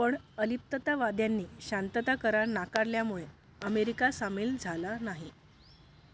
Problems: none marked